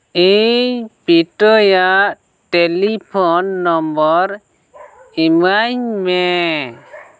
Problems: background sounds at intervals